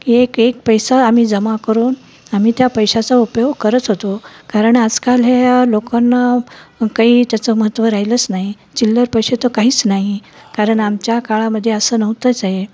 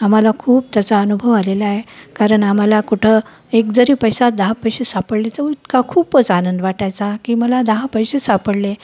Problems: none marked